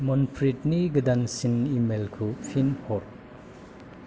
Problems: none marked